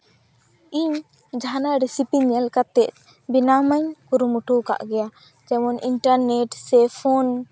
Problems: none marked